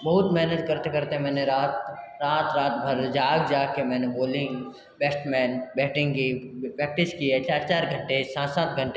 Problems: constant background noise